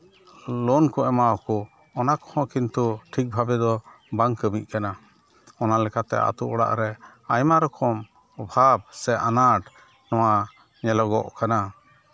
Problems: none marked